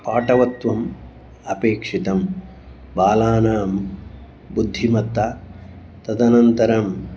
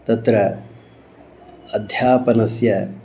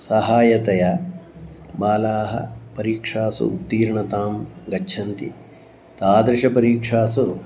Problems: background sounds at intervals